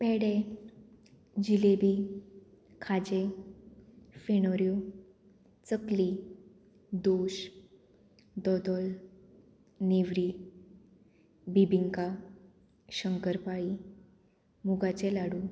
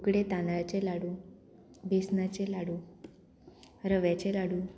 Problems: none marked